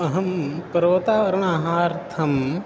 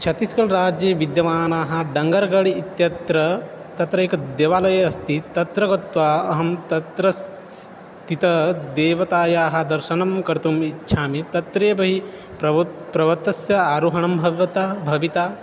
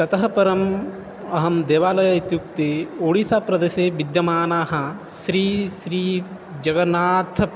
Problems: none marked